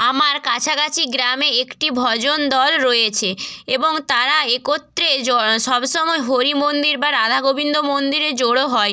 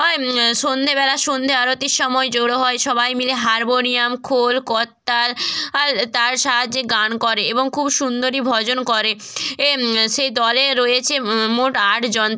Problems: constant background noise